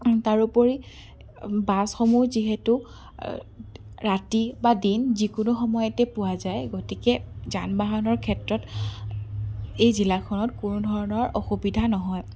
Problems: none marked